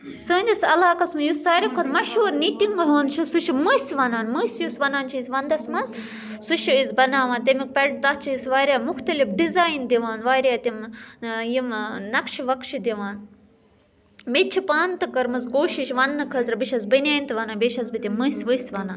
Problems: none marked